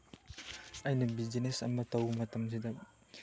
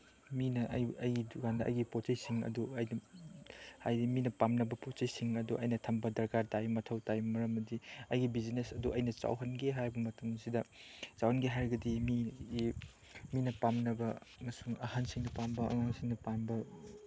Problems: background sounds at intervals, background conversations at intervals